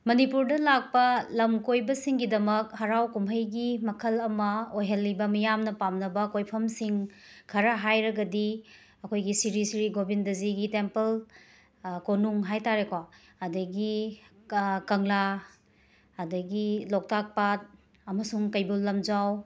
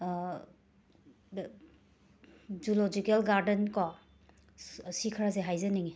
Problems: background sounds at intervals